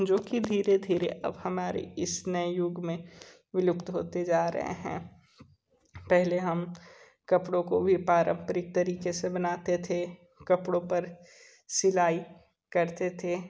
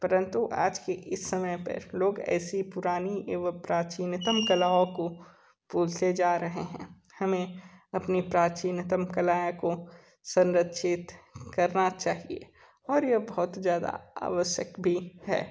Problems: background sounds at intervals